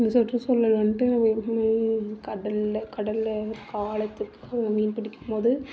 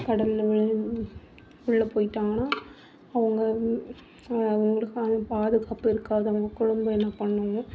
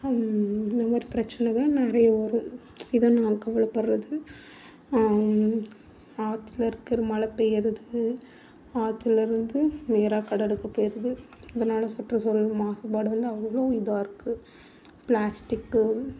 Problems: background sounds at intervals